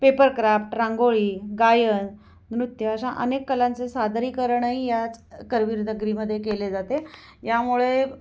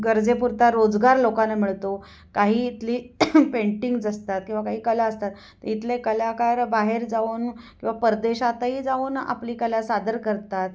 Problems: background sounds at intervals, echo